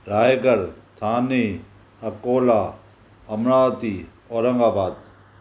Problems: none marked